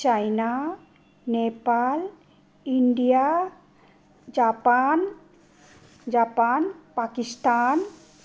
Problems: background sounds at intervals